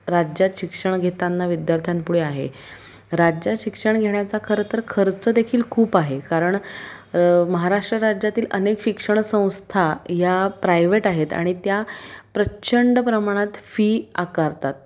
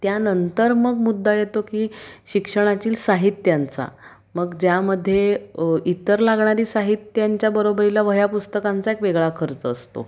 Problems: constant background noise